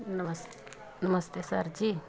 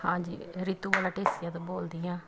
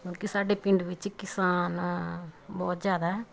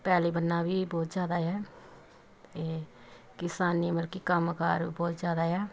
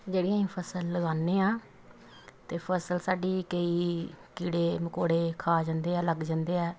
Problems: constant background noise, background conversations at intervals